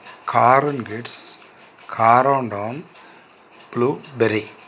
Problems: constant background noise